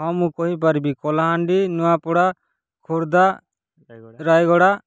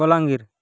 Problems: background sounds at intervals, background conversations at intervals